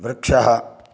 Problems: none marked